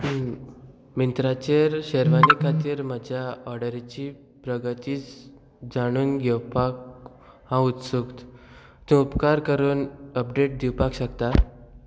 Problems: background sounds at intervals